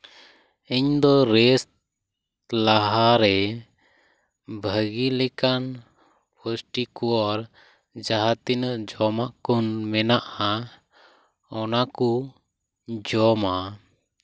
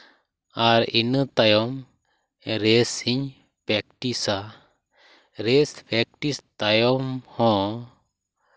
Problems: none marked